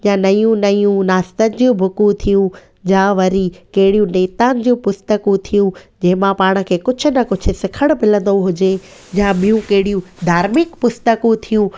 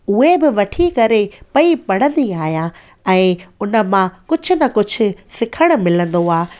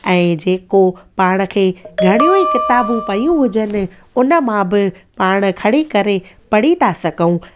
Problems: constant background noise